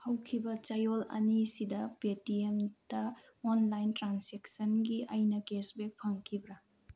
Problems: low volume